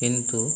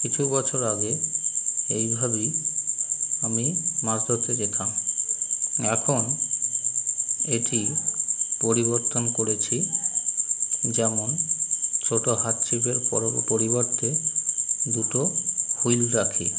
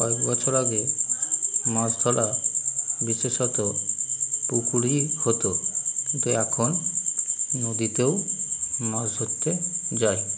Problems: none marked